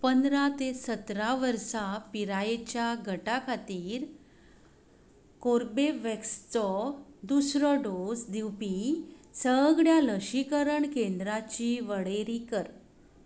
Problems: constant background noise